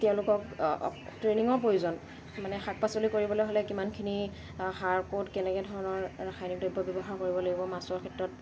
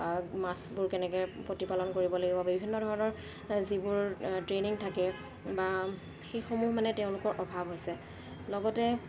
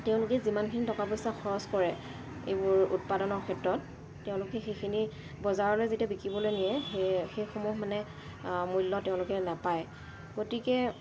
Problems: constant background noise